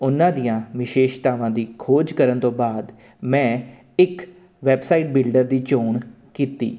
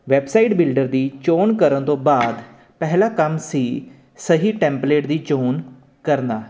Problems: constant background noise